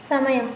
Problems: none marked